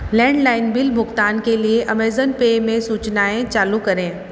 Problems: constant background noise, echo